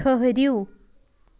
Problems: background sounds at intervals